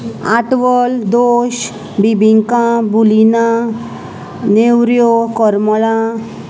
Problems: constant background noise, background conversations at intervals